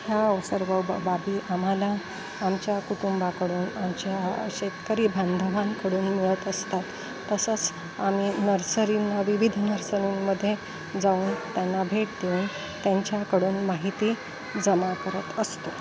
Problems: constant background noise